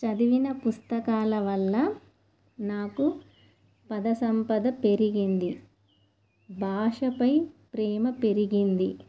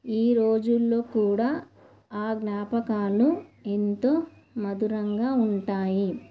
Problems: none marked